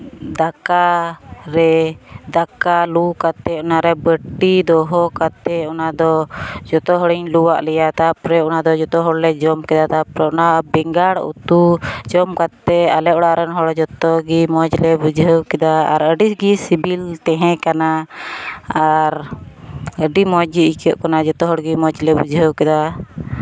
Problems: constant background noise